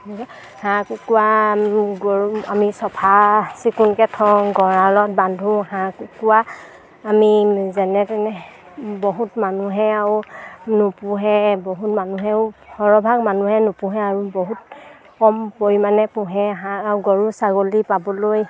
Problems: background sounds at intervals